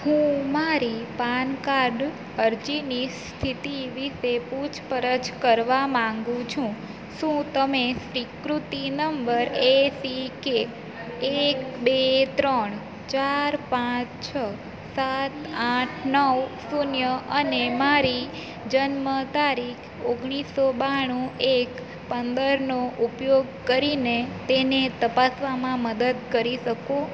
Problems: constant background noise